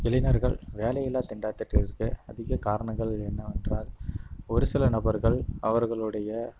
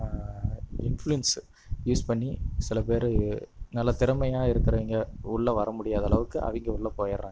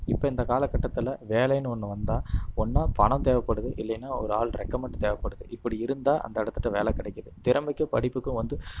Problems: constant background noise